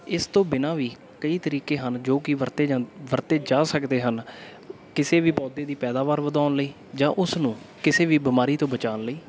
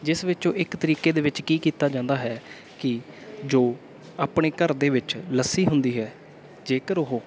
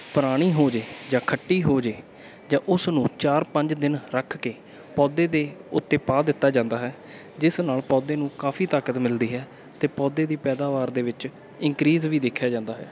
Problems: background sounds at intervals, background conversations at intervals